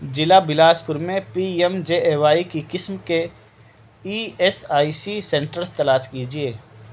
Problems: none marked